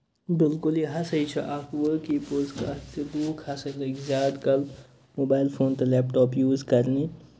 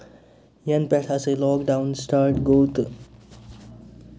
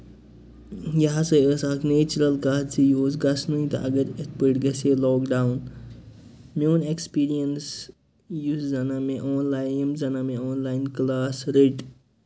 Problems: constant background noise